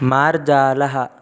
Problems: constant background noise